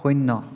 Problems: constant background noise, echo